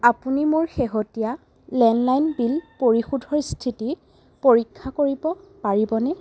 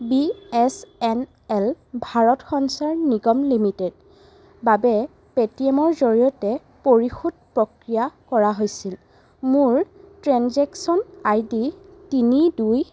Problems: constant background noise